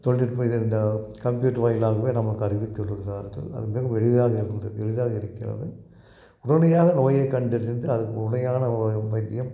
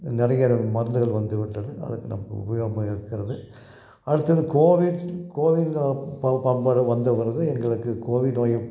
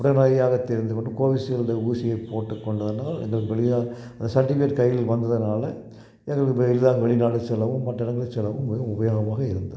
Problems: none marked